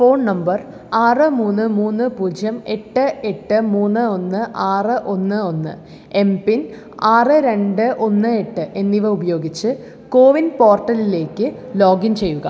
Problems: none marked